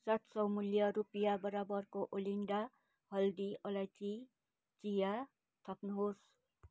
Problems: none marked